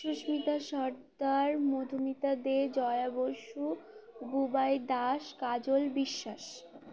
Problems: constant background noise, continuous background conversations